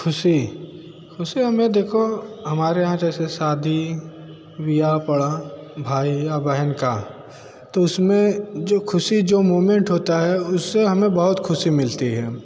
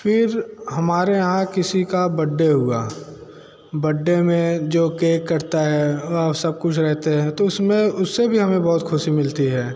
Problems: constant background noise